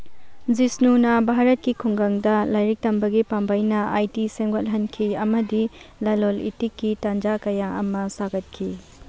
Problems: none marked